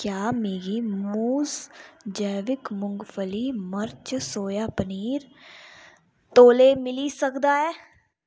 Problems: background sounds at intervals